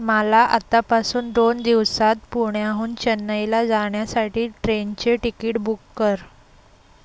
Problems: background sounds at intervals